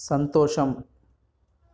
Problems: constant background noise